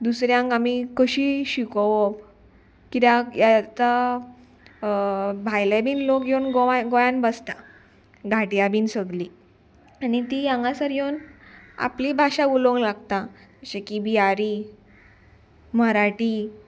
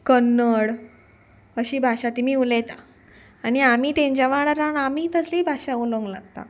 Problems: none marked